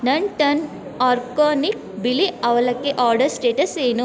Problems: none marked